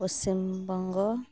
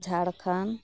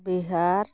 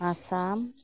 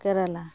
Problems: none marked